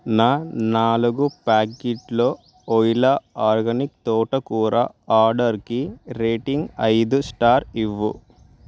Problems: background sounds at intervals